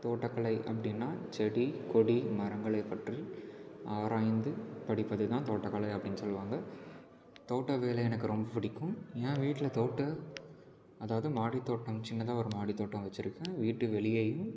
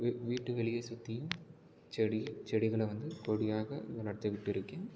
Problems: background conversations at intervals, low volume